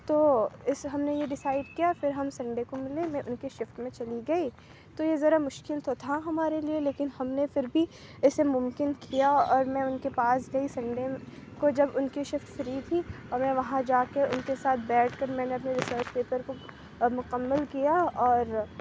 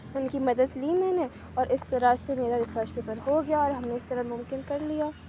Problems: low volume